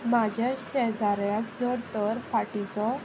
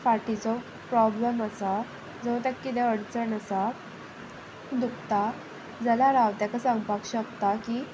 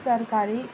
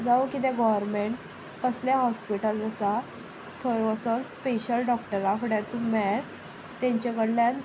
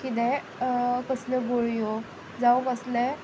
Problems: constant background noise